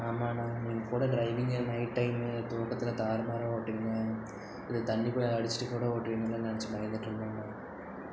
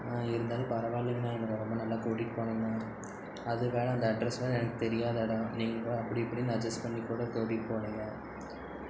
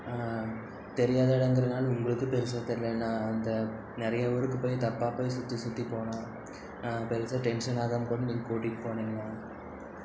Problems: none marked